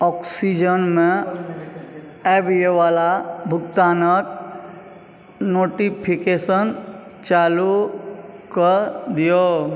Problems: background conversations at intervals